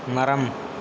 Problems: background sounds at intervals